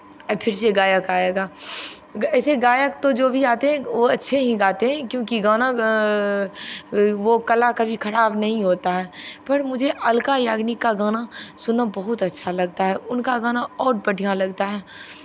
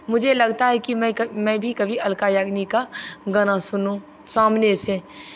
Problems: none marked